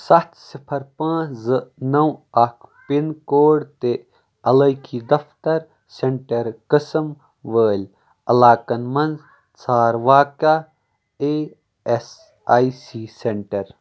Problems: background sounds at intervals, background conversations at intervals